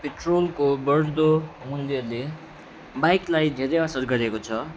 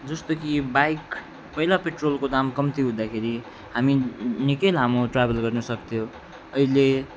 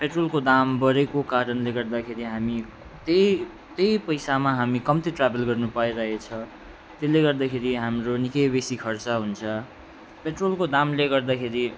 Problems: background sounds at intervals, background conversations at intervals